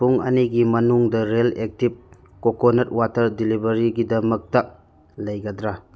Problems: none marked